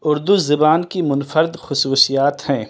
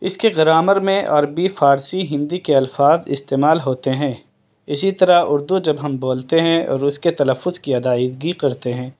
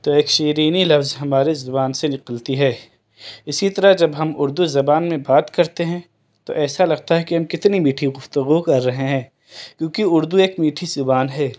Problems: none marked